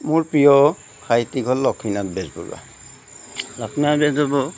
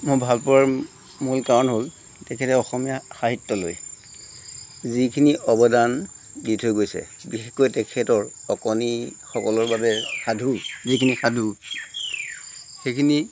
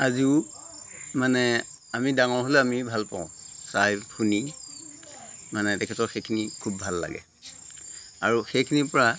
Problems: constant background noise